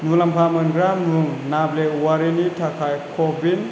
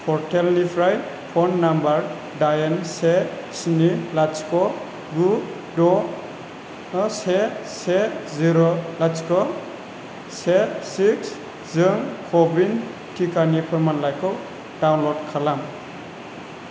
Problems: constant background noise